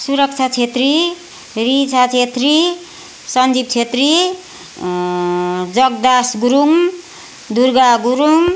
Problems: constant background noise